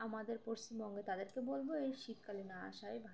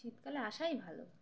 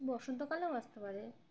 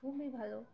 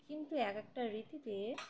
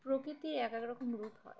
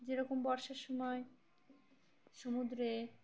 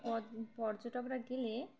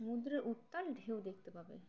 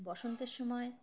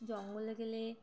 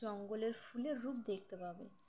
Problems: background sounds at intervals, background conversations at intervals